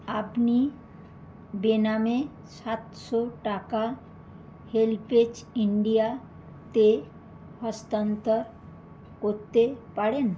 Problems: none marked